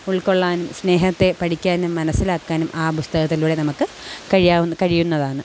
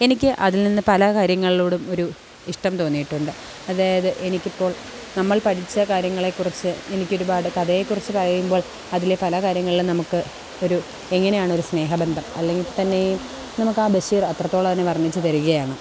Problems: constant background noise